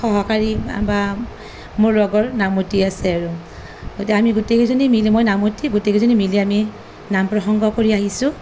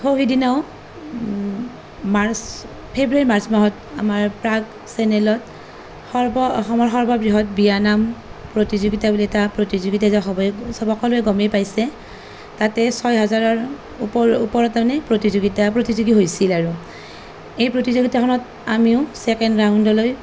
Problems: none marked